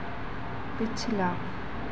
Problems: constant background noise